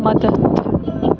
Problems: constant background noise